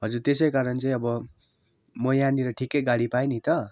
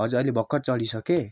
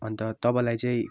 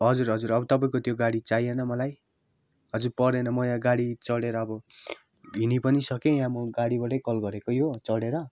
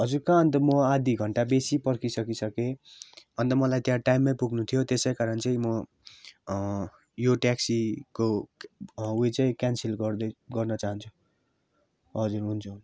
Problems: background sounds at intervals